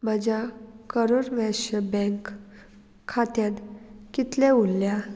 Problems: none marked